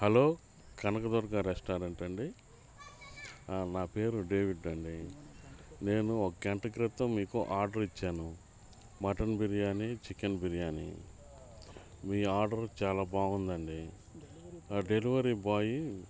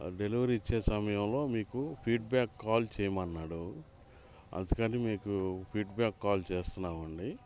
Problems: constant background noise